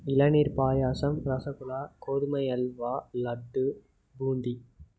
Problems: low volume